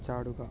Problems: low volume